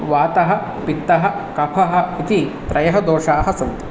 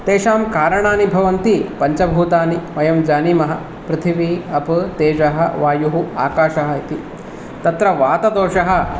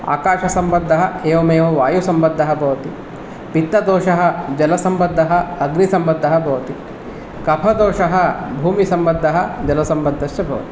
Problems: none marked